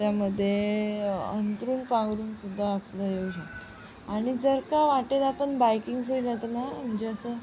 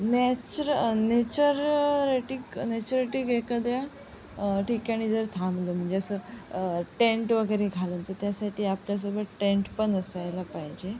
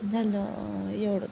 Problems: constant background noise, low volume